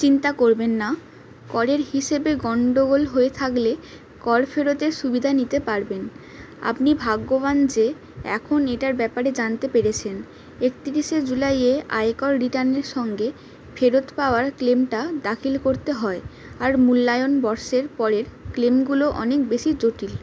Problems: constant background noise